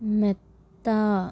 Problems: none marked